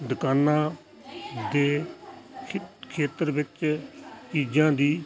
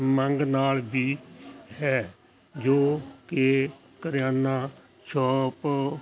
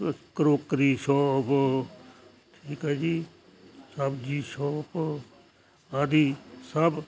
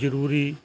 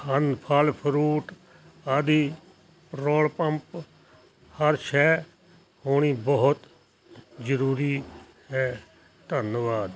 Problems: constant background noise